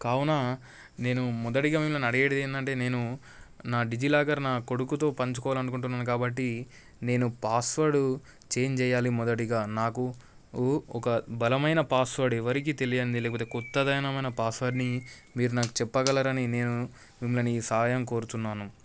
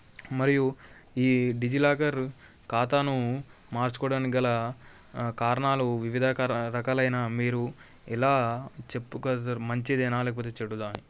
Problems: background sounds at intervals